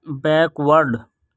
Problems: none marked